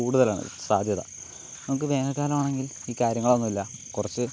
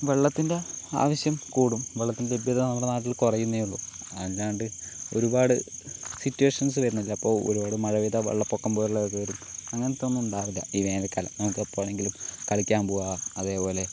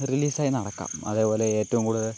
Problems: constant background noise